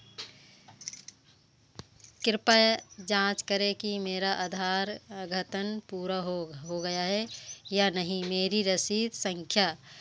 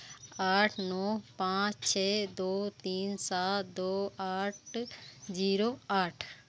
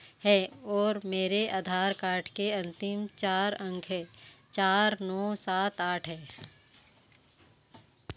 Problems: none marked